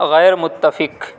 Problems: constant background noise